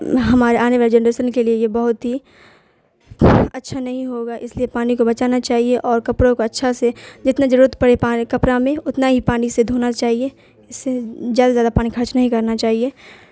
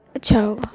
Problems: constant background noise